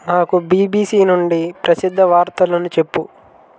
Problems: constant background noise, background conversations at intervals